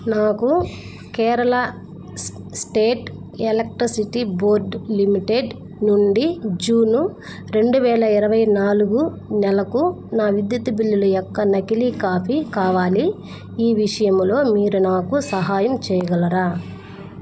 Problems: none marked